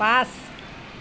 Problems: constant background noise